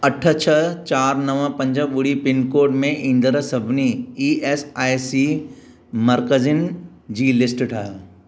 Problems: none marked